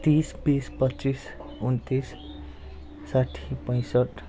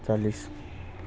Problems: background sounds at intervals